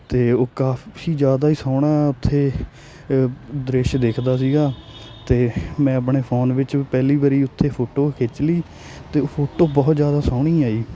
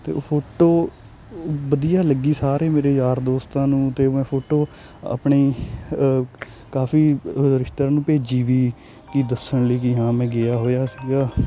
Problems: none marked